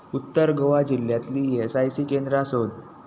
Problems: constant background noise